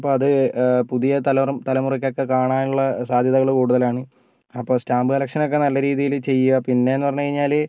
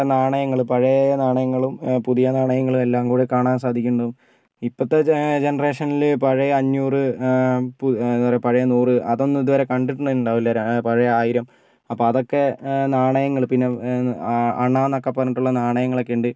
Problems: none marked